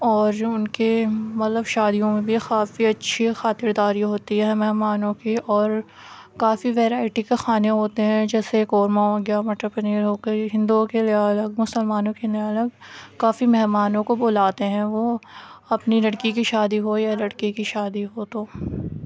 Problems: none marked